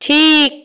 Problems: none marked